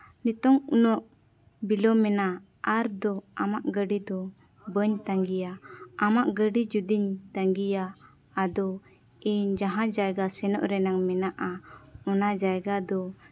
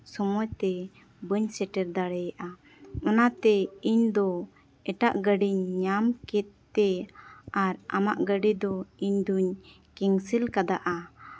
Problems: background sounds at intervals, background conversations at intervals